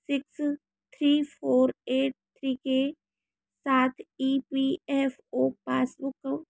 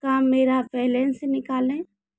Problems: constant background noise